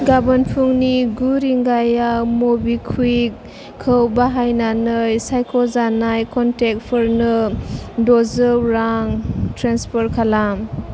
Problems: none marked